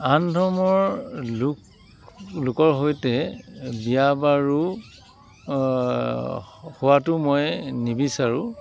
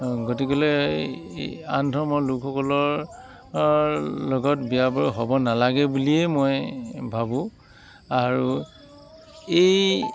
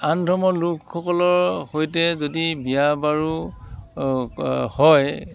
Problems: constant background noise